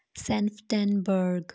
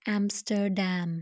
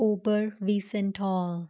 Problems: constant background noise